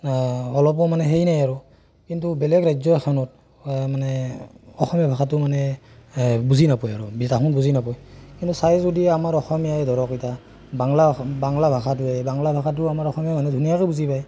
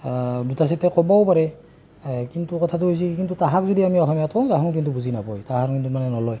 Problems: constant background noise